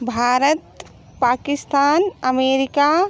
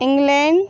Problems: none marked